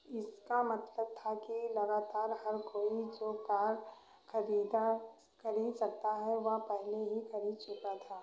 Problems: background sounds at intervals, echo